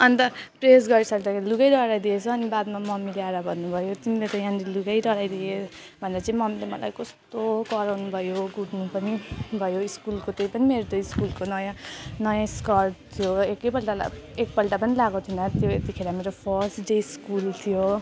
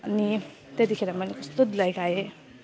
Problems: continuous background conversations